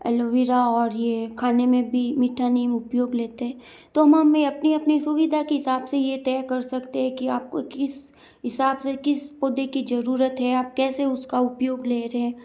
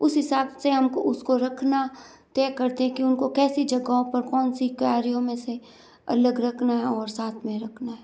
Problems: none marked